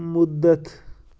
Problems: constant background noise